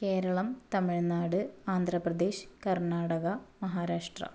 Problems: low volume